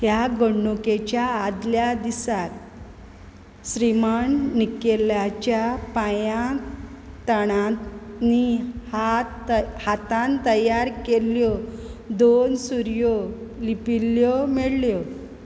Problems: background sounds at intervals